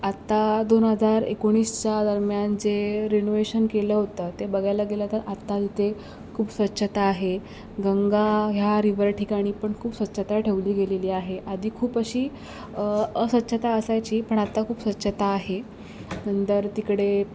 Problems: background sounds at intervals